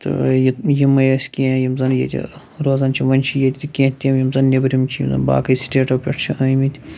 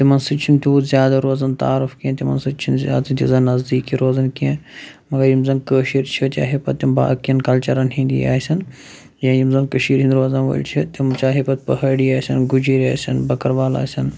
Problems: constant background noise